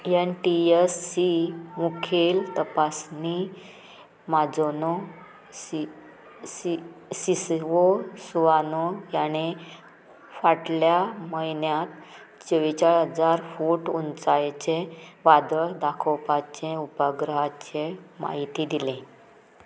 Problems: background sounds at intervals